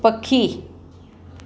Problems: constant background noise